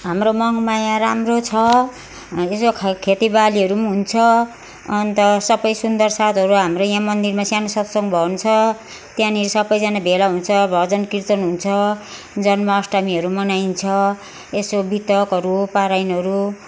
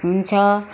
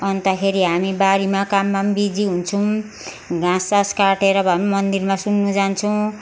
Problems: constant background noise